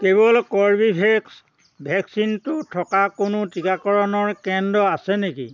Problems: constant background noise